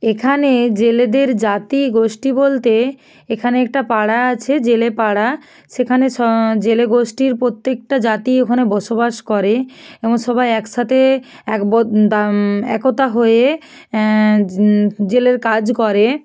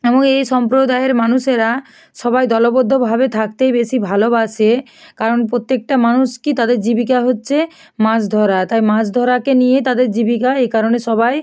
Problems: none marked